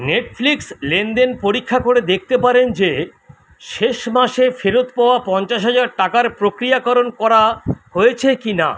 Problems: none marked